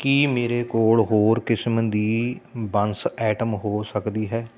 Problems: constant background noise